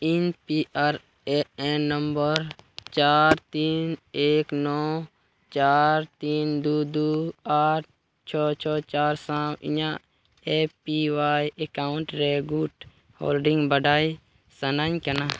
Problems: background sounds at intervals